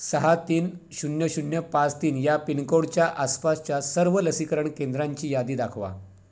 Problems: background sounds at intervals